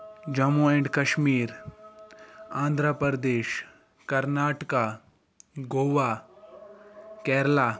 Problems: background conversations at intervals